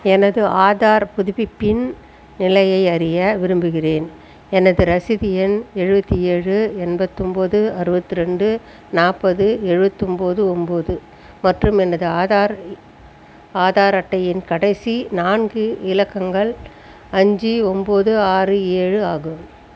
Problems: constant background noise